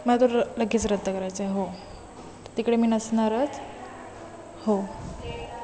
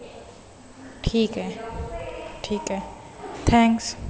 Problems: constant background noise, continuous background conversations